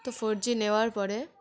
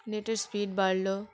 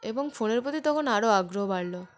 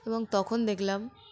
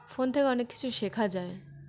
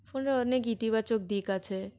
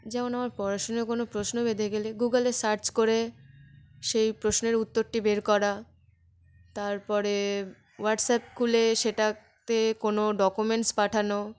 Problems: constant background noise